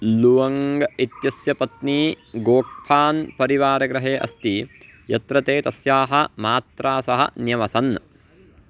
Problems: background sounds at intervals